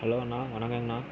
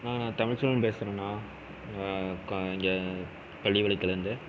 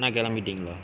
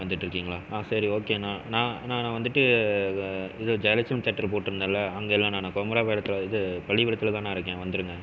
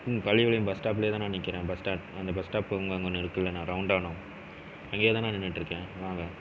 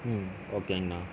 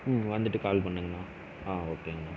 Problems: constant background noise